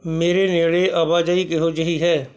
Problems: constant background noise